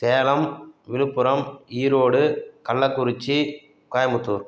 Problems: none marked